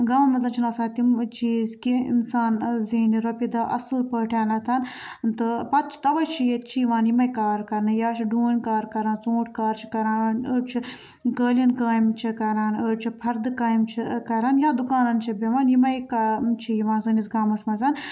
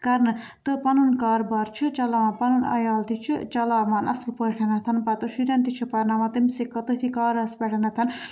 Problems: background sounds at intervals